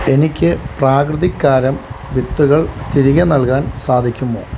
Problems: constant background noise